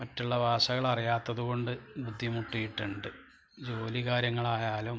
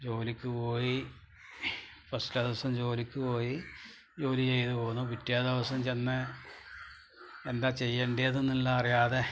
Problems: low volume